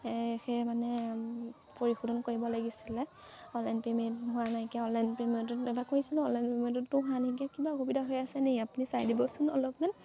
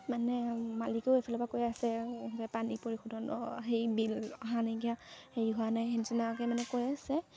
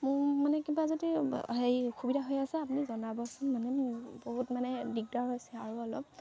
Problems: constant background noise, background conversations at intervals